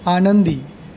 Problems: none marked